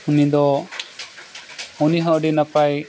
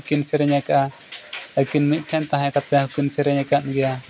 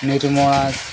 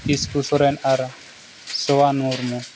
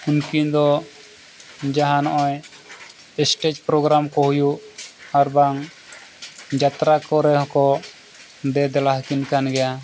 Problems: continuous background conversations